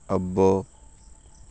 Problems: constant background noise